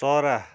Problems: none marked